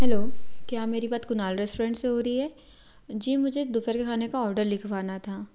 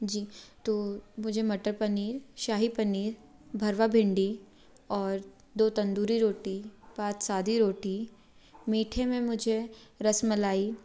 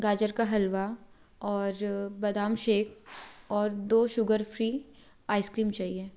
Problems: background sounds at intervals